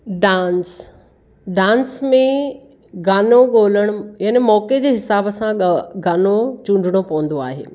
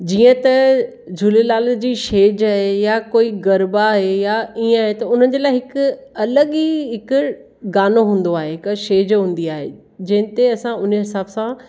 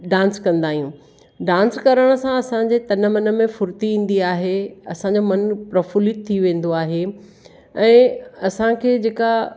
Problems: none marked